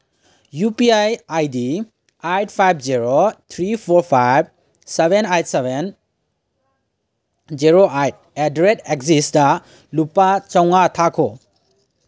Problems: none marked